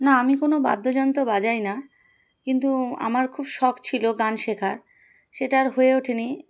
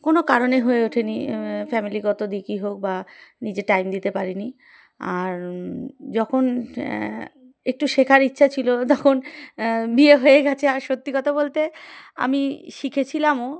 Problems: background sounds at intervals